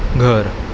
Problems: constant background noise